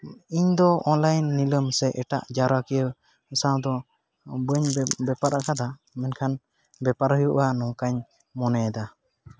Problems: constant background noise